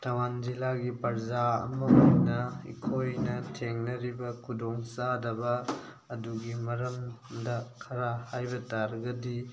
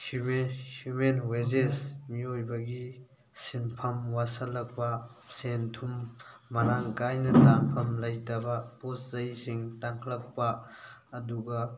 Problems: constant background noise, background conversations at intervals